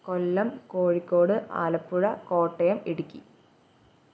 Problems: background sounds at intervals